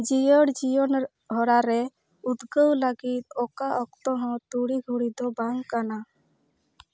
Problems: none marked